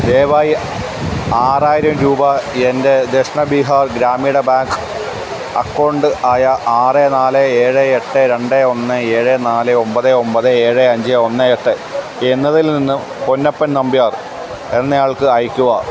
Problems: constant background noise